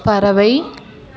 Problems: continuous background conversations